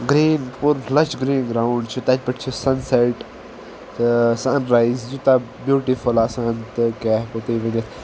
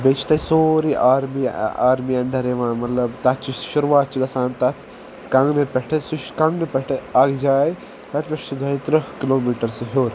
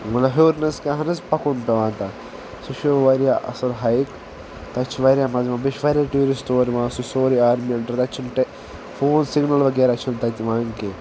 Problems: constant background noise